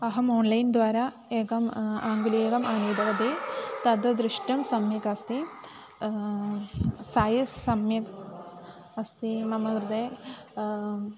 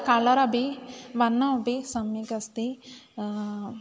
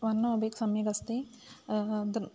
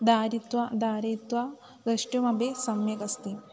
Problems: constant background noise, continuous background conversations